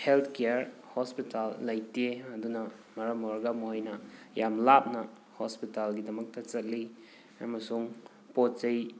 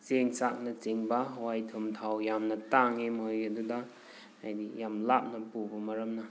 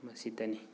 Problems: background sounds at intervals